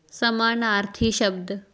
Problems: background conversations at intervals